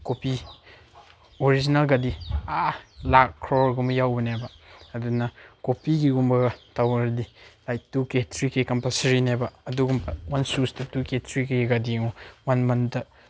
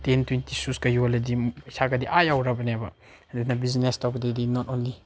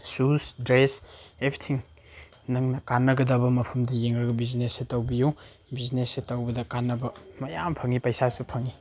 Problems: none marked